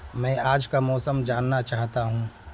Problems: constant background noise